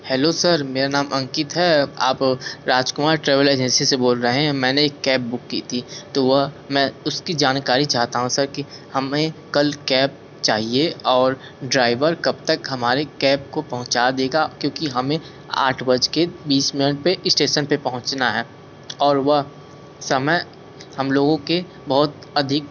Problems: constant background noise